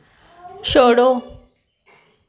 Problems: none marked